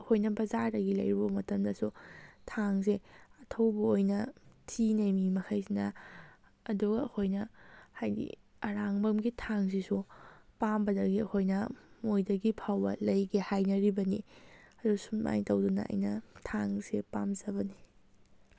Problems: none marked